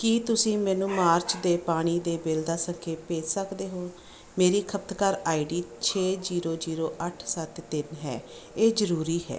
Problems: background sounds at intervals